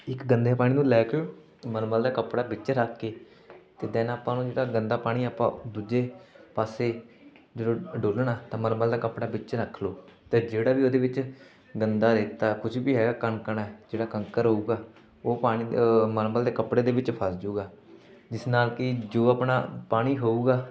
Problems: background sounds at intervals, continuous background conversations